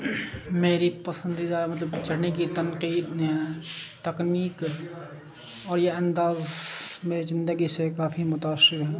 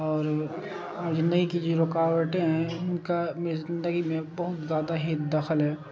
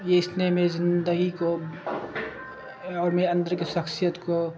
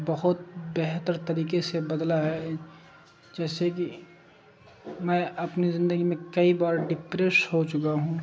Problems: constant background noise